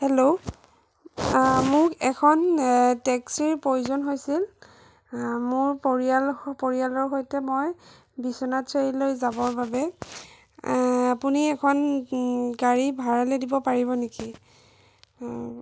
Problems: none marked